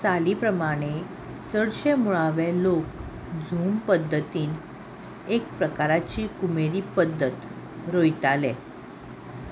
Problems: constant background noise